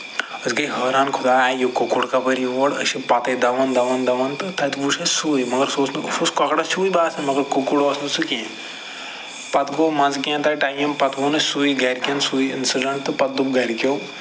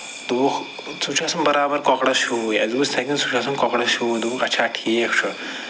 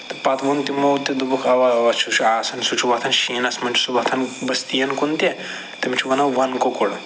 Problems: constant background noise